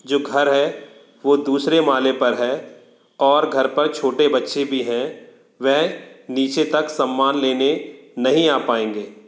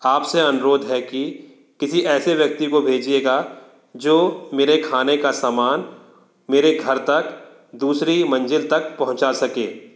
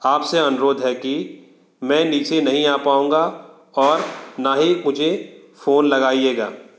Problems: background conversations at intervals